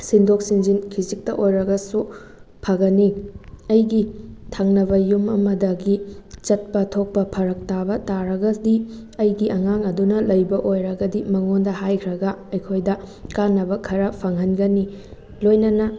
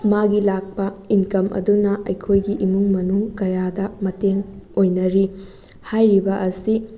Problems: background sounds at intervals